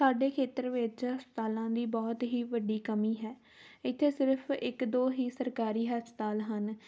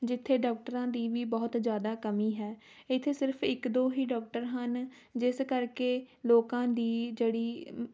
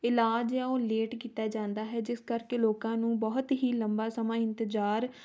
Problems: background sounds at intervals